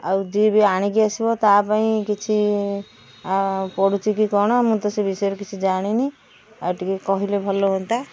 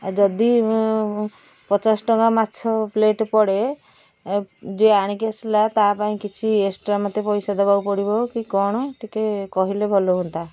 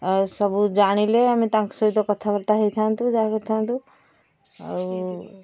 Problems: background sounds at intervals